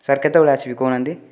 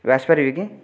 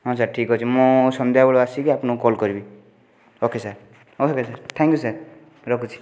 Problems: background sounds at intervals